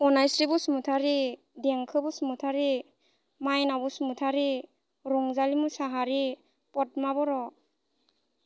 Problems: constant background noise